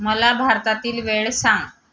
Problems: background sounds at intervals